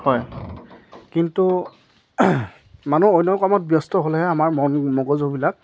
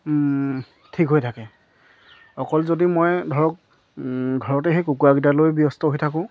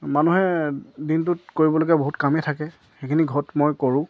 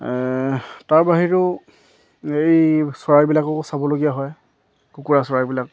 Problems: none marked